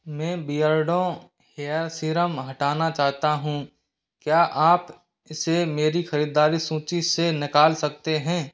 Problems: background sounds at intervals